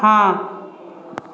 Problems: background sounds at intervals, background conversations at intervals